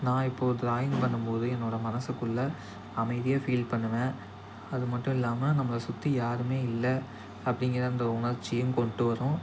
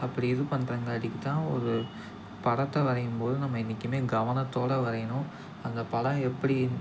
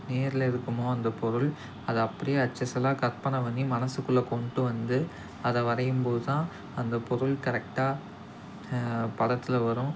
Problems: constant background noise, background conversations at intervals